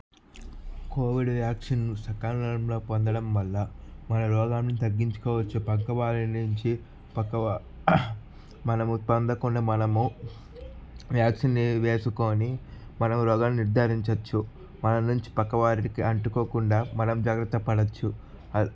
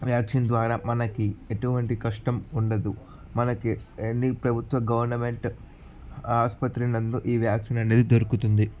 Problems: background sounds at intervals